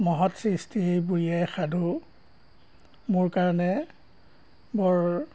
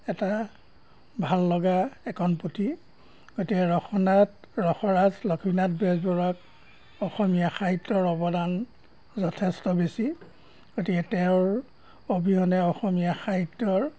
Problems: background sounds at intervals